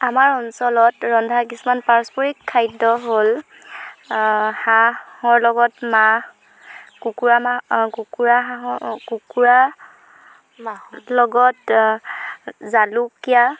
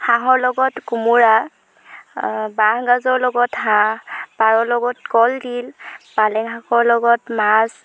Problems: background sounds at intervals